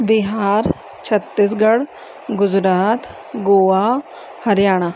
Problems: constant background noise